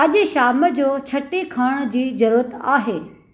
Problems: none marked